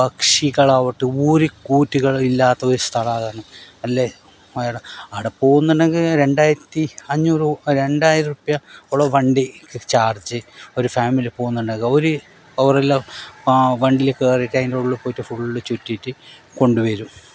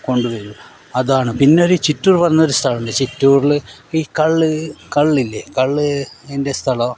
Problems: none marked